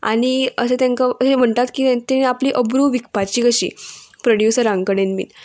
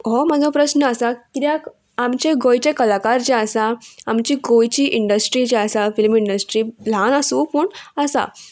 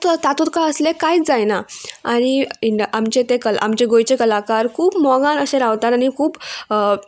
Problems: none marked